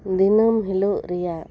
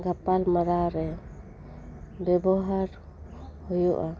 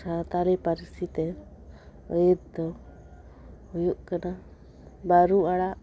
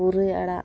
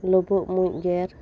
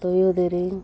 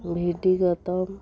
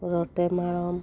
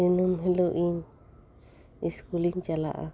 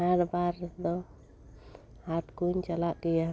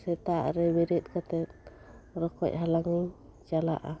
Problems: background sounds at intervals, background conversations at intervals